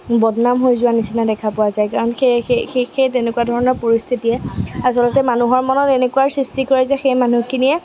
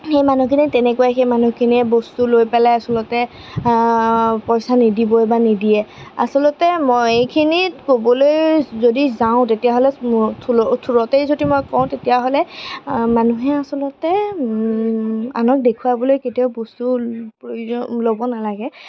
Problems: constant background noise